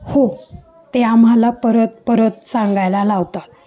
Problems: constant background noise, background conversations at intervals